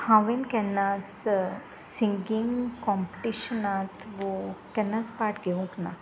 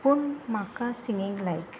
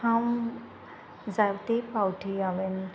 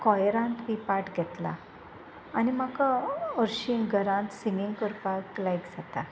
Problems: constant background noise